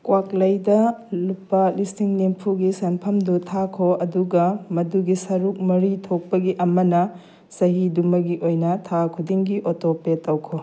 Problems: none marked